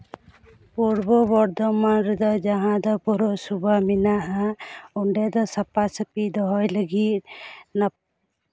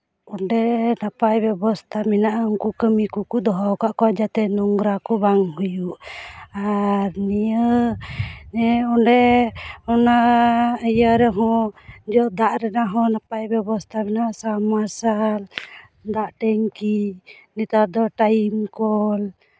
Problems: none marked